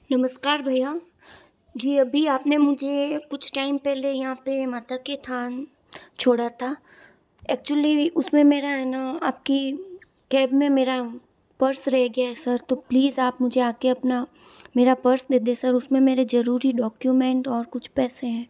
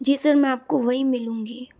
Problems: background sounds at intervals